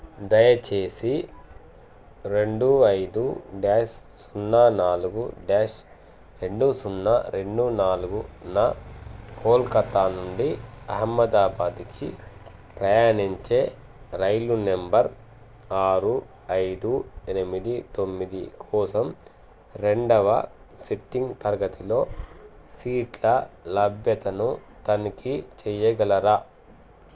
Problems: constant background noise